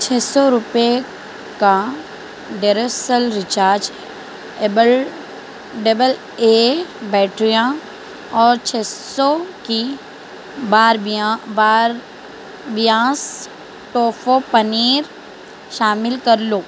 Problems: constant background noise